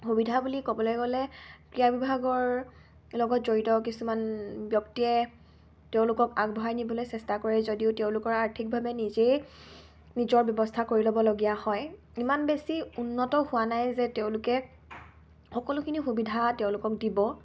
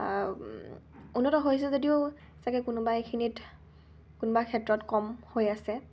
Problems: constant background noise